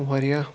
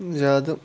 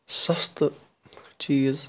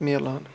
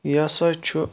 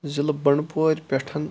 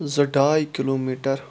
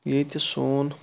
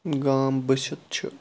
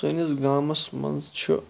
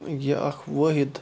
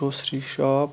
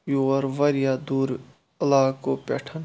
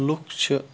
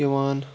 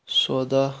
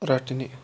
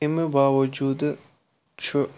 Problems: constant background noise